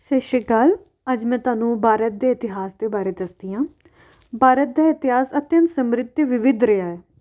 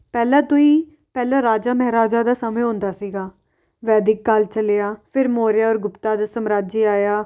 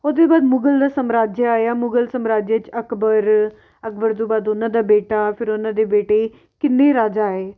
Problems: none marked